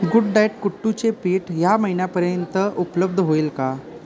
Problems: none marked